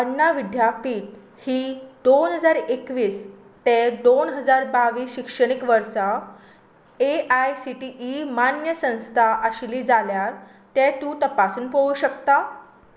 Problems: background sounds at intervals